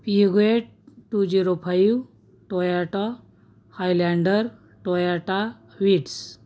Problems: none marked